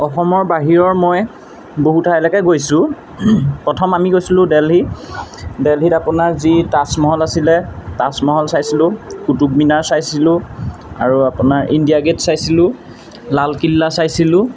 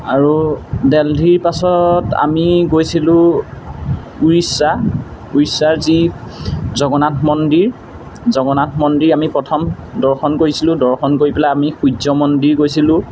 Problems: constant background noise